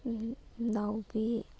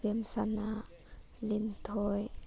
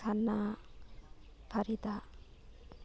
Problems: none marked